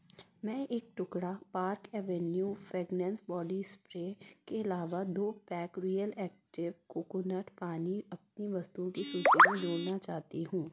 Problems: background sounds at intervals